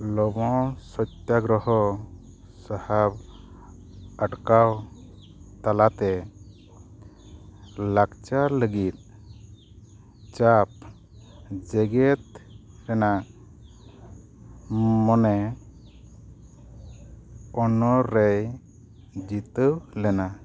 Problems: background sounds at intervals